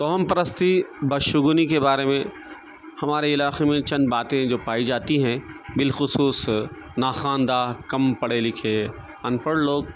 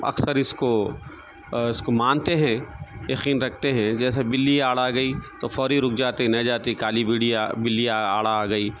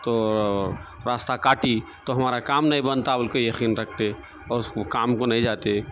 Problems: constant background noise